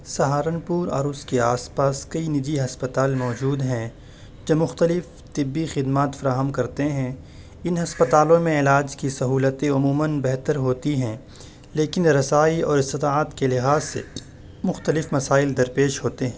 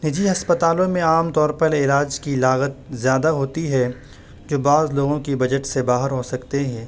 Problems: constant background noise